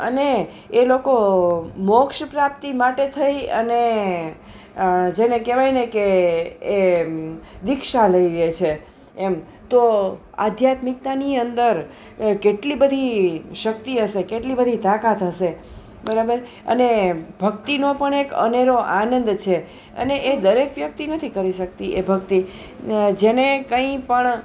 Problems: none marked